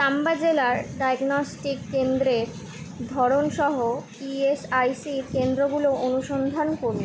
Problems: background sounds at intervals